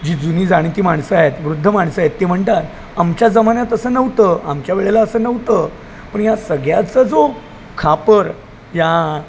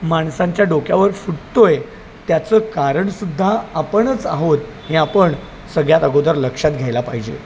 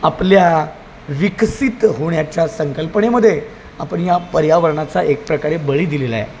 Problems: none marked